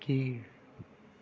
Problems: low volume